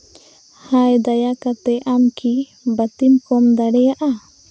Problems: constant background noise